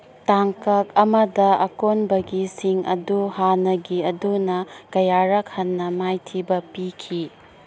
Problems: none marked